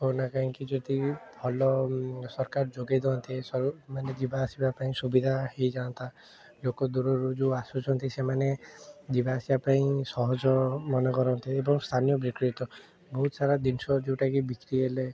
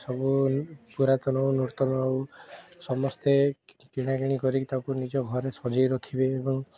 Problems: background sounds at intervals, continuous background conversations